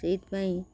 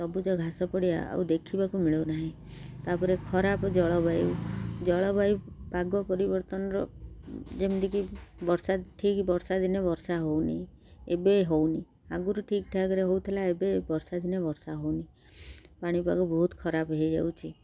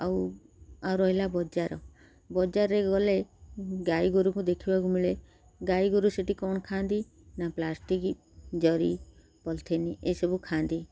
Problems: none marked